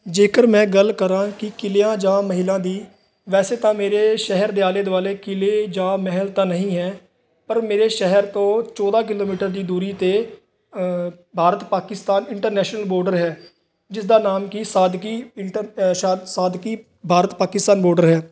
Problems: constant background noise